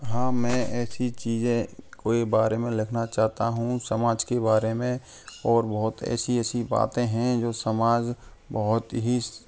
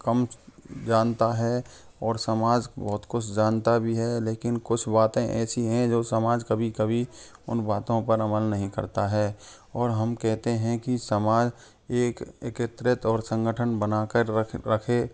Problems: constant background noise, continuous background conversations